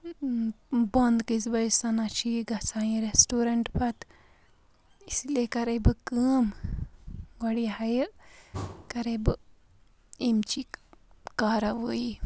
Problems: background sounds at intervals